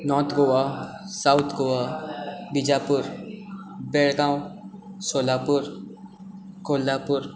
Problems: background sounds at intervals